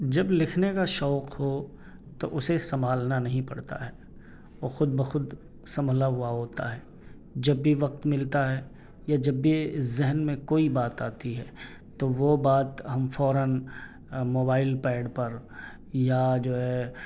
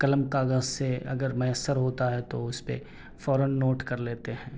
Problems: none marked